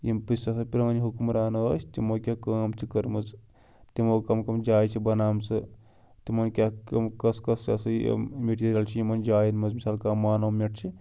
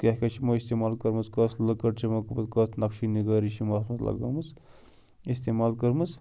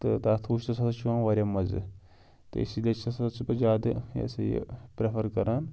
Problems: background sounds at intervals